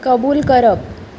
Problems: none marked